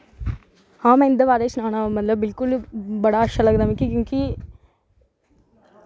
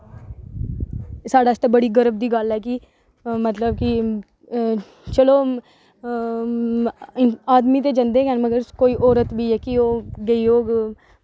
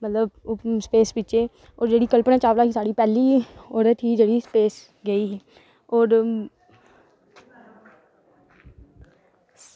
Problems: none marked